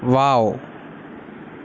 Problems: constant background noise